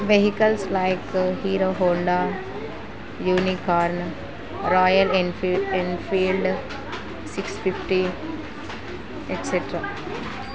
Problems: constant background noise